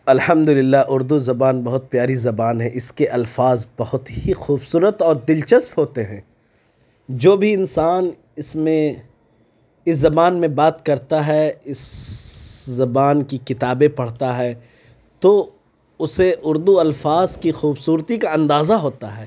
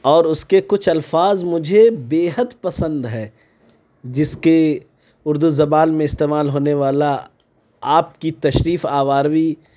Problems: none marked